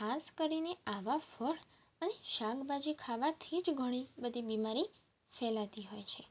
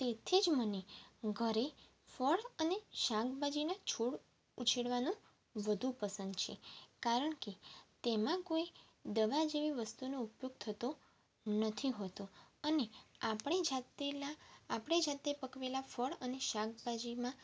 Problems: constant background noise